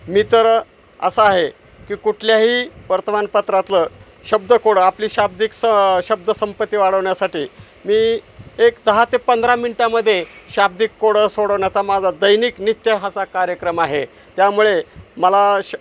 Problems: constant background noise, background conversations at intervals